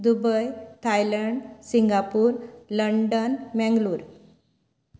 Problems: none marked